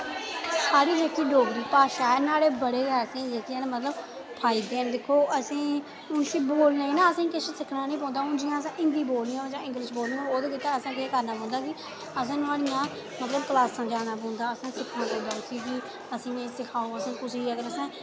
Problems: constant background noise